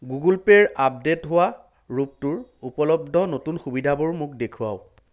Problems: none marked